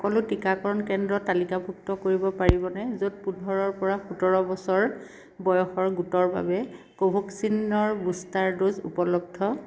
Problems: constant background noise